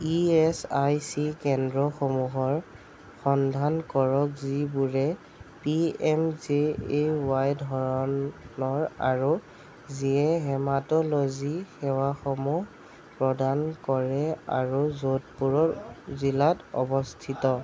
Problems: background conversations at intervals